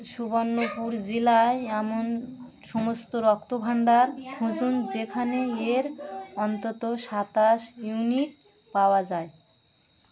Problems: none marked